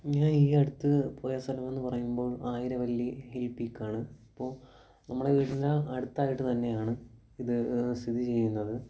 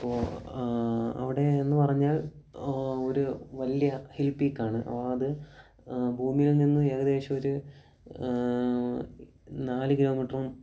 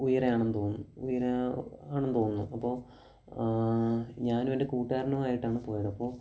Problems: low volume